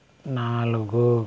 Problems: none marked